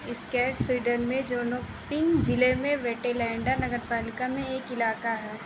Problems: constant background noise